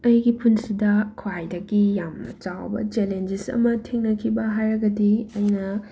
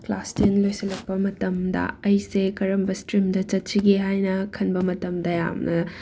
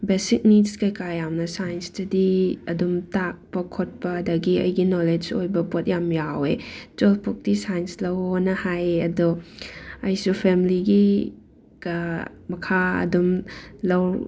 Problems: background sounds at intervals